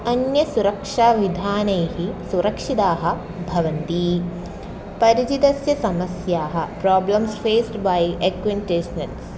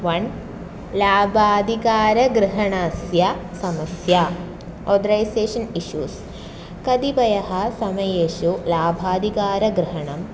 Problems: background sounds at intervals